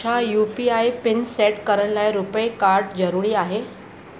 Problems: constant background noise